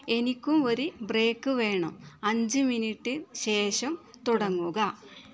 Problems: background sounds at intervals